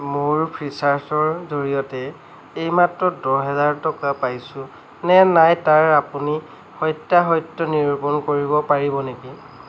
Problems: none marked